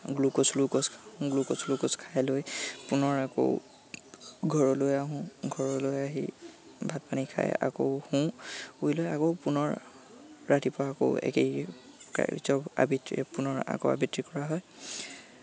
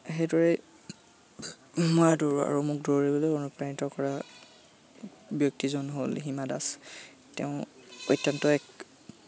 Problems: constant background noise, background conversations at intervals